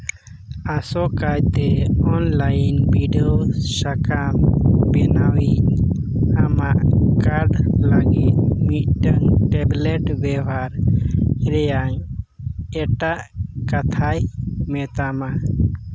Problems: constant background noise